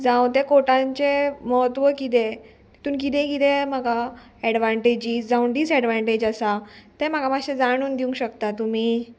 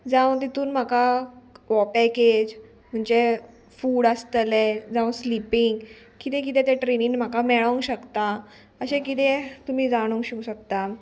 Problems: none marked